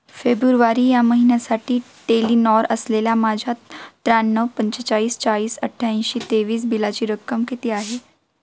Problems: background sounds at intervals